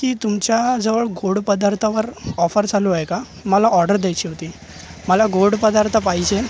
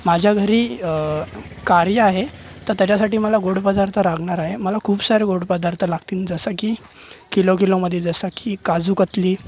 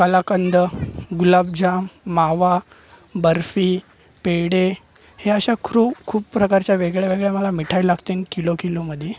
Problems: constant background noise, background conversations at intervals